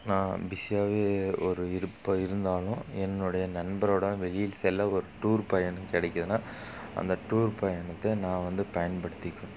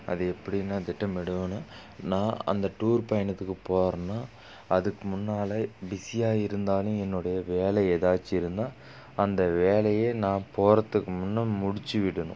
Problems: none marked